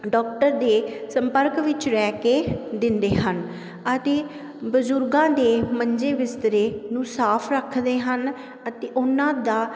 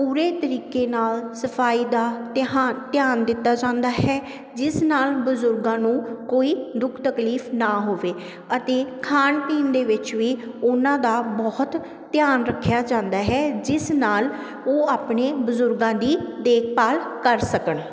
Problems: constant background noise